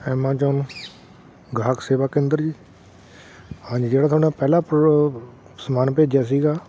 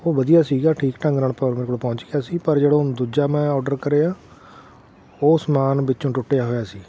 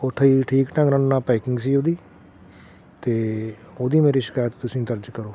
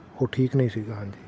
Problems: none marked